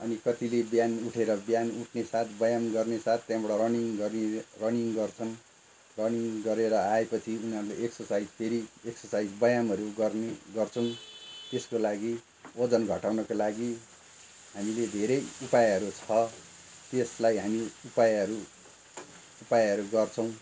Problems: constant background noise